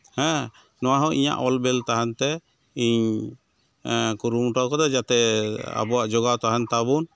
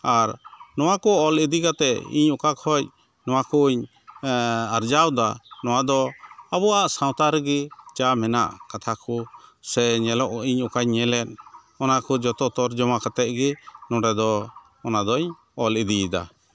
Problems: constant background noise